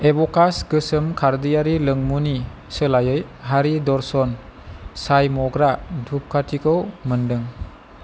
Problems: constant background noise